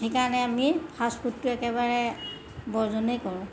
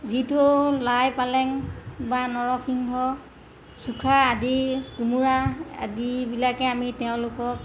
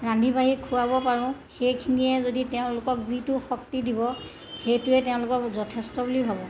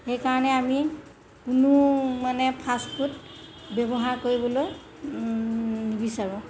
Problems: none marked